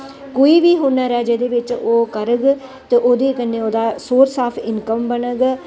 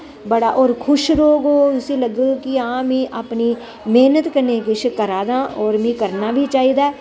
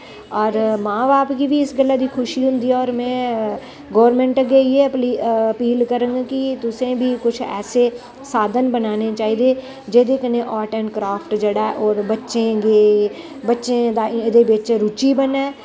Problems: none marked